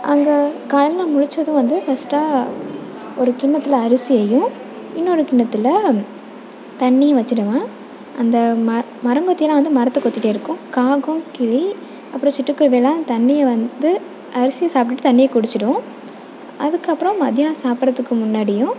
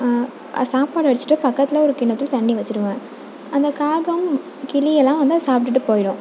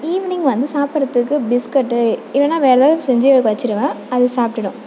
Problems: background sounds at intervals